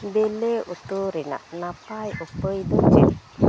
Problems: background sounds at intervals, low volume